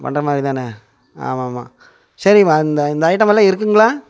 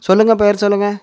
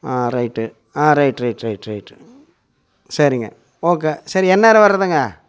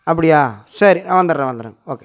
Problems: none marked